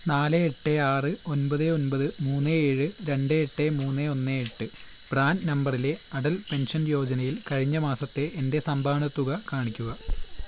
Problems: none marked